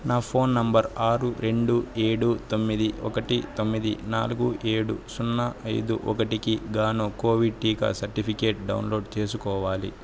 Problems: constant background noise